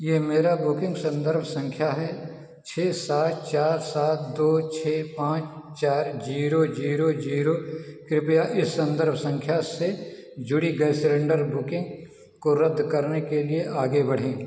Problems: constant background noise, echo